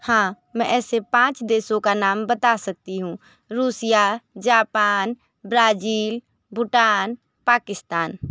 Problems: none marked